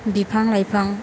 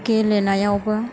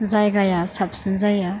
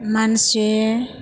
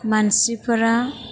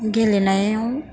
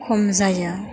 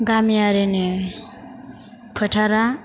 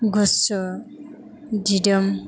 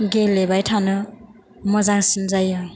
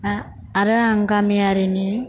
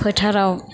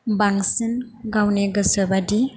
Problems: constant background noise